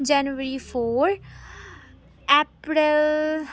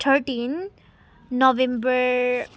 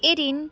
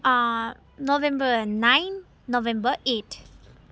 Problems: background sounds at intervals